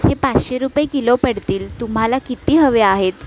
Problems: background sounds at intervals